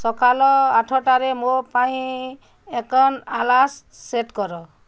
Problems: none marked